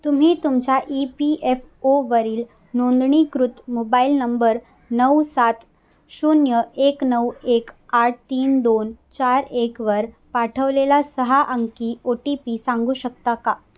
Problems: constant background noise